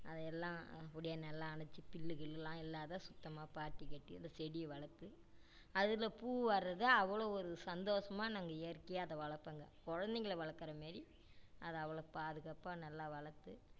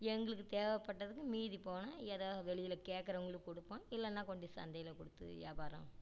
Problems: low volume